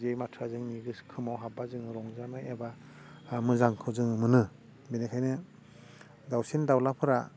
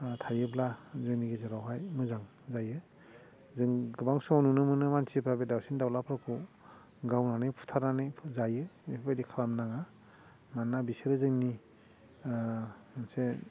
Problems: constant background noise